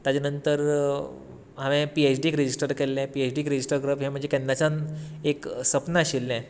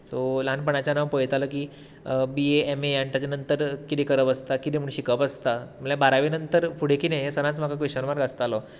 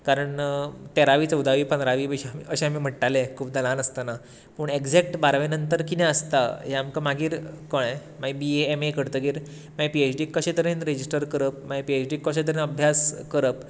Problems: constant background noise